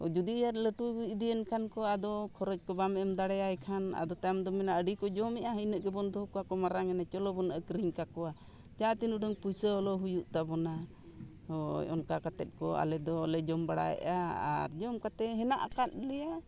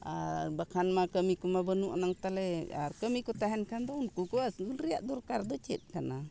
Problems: background sounds at intervals, background conversations at intervals